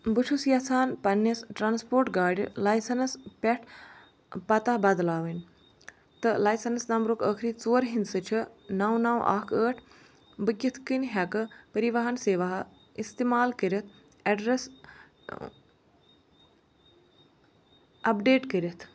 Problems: none marked